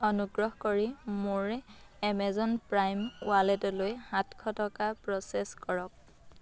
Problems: background sounds at intervals